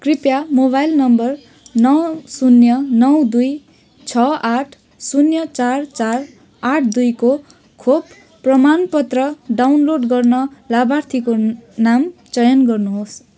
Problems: background sounds at intervals